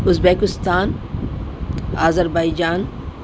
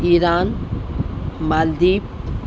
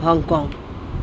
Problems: constant background noise